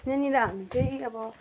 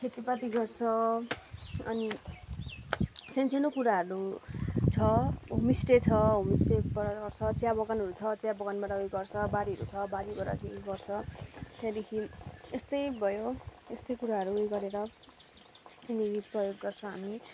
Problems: background sounds at intervals